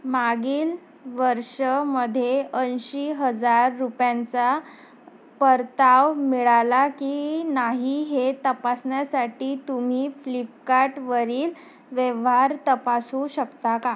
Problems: constant background noise